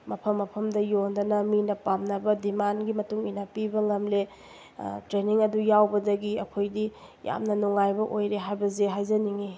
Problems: none marked